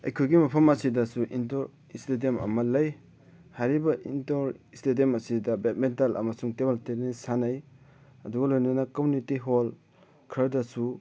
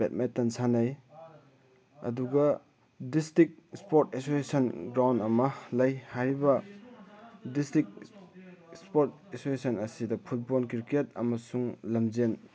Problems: background conversations at intervals